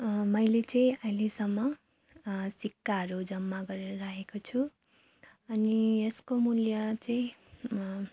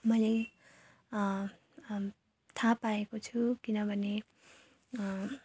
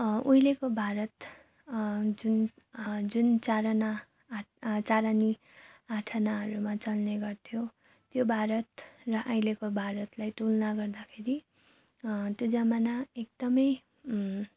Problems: background sounds at intervals